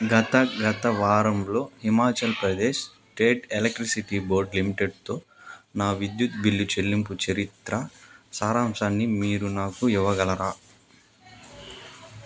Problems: constant background noise